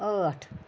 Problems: constant background noise